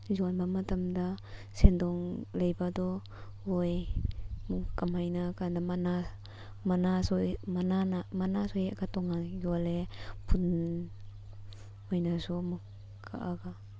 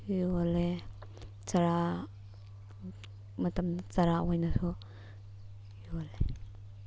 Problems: none marked